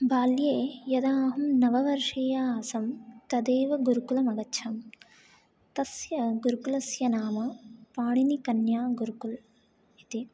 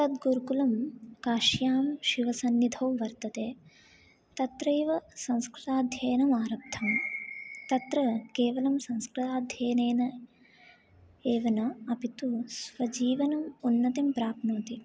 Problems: low volume